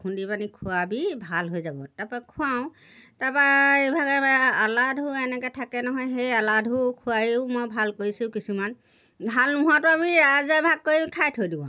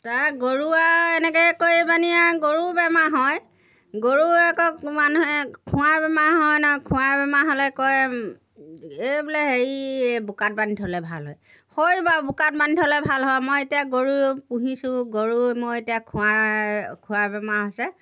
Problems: none marked